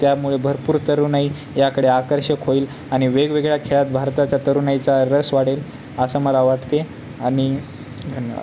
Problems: none marked